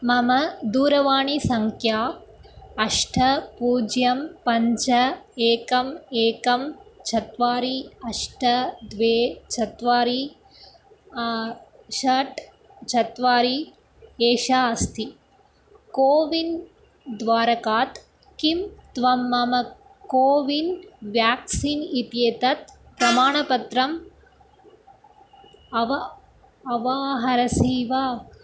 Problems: background sounds at intervals